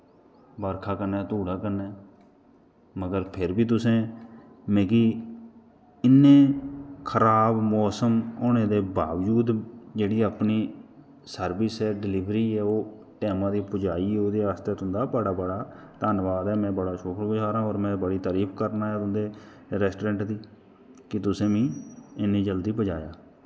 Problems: constant background noise